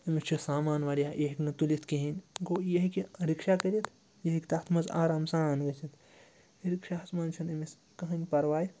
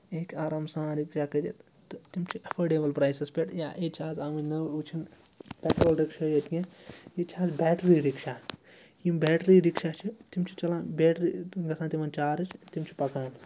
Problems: constant background noise